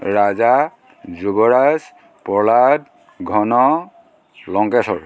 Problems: constant background noise